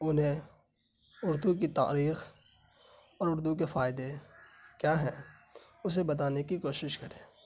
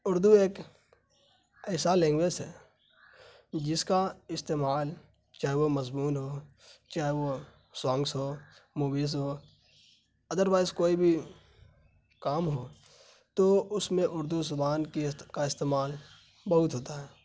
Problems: constant background noise